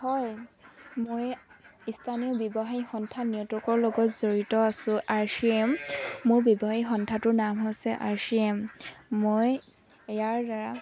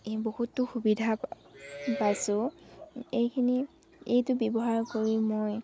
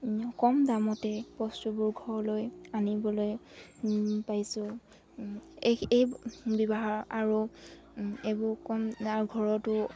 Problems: background sounds at intervals